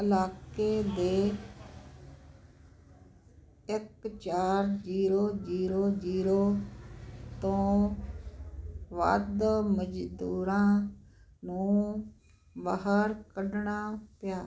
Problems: constant background noise